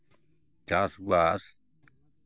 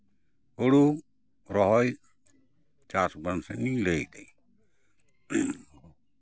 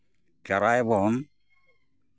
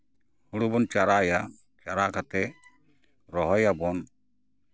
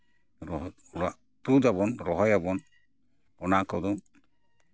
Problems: background sounds at intervals, background conversations at intervals